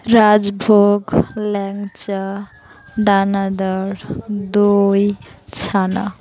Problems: constant background noise